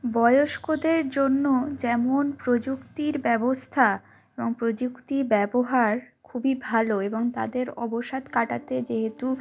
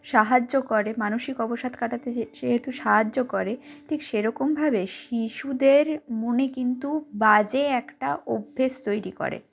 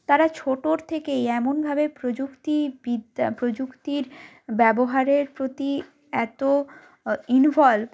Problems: background sounds at intervals